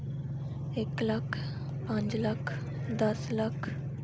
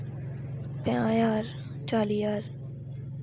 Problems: constant background noise